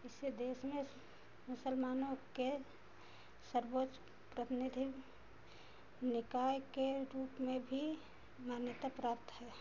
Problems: constant background noise